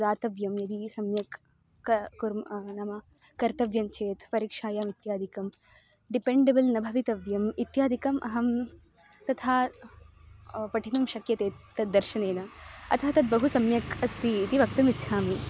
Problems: constant background noise, continuous background conversations